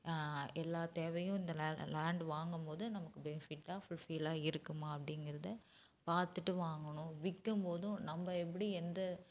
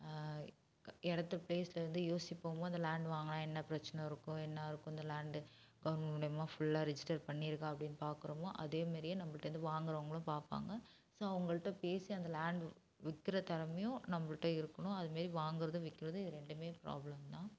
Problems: none marked